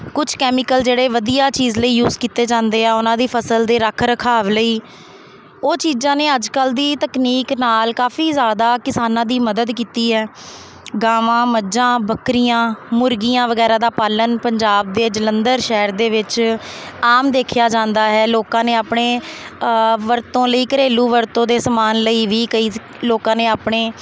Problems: constant background noise